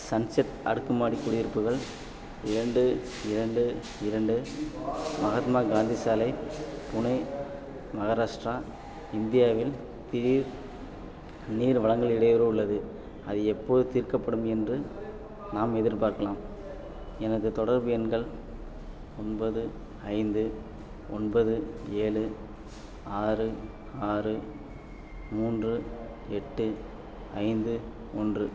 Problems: background sounds at intervals, background conversations at intervals